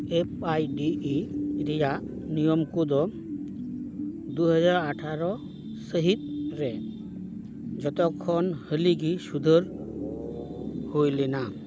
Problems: background sounds at intervals